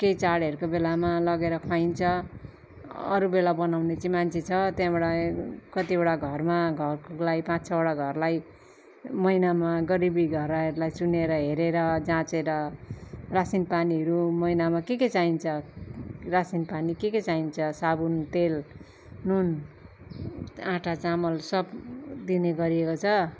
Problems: none marked